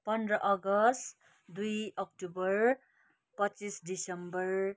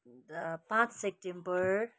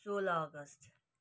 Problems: none marked